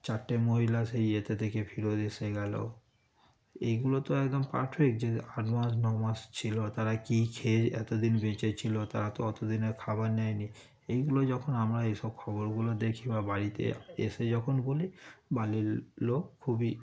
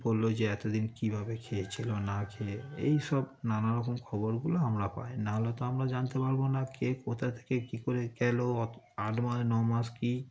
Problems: background sounds at intervals, background conversations at intervals